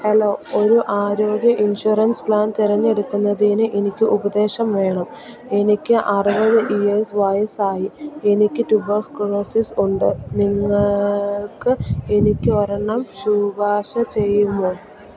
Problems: none marked